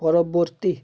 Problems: none marked